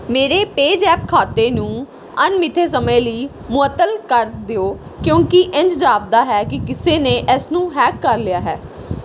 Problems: background sounds at intervals